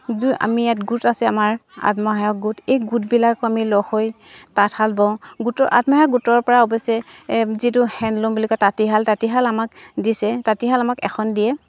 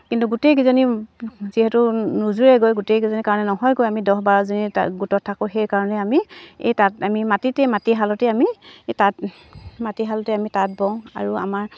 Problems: none marked